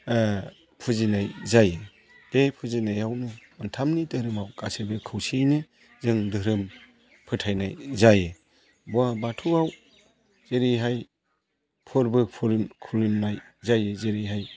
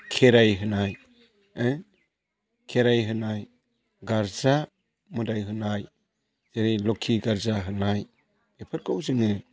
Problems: constant background noise